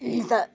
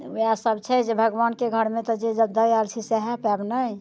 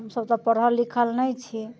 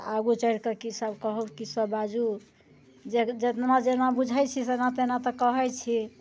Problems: none marked